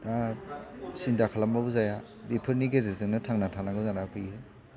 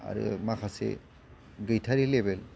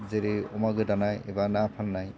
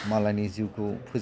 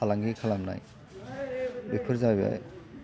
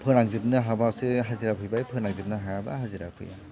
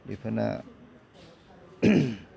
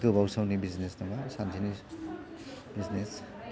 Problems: constant background noise